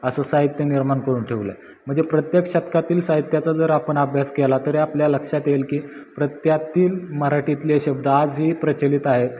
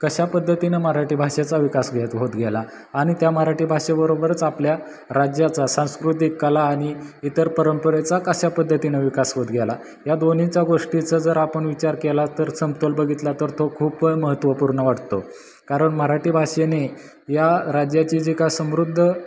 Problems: background sounds at intervals